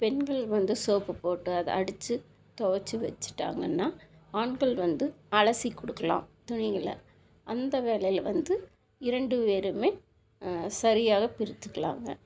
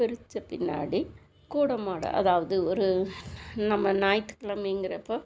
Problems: constant background noise